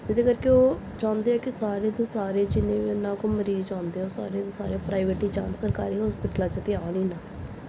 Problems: none marked